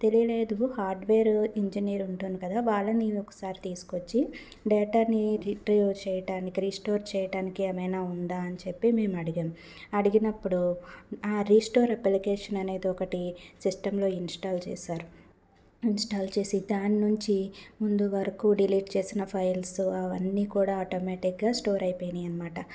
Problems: none marked